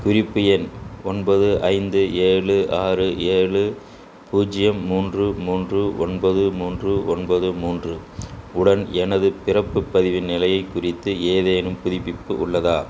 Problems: constant background noise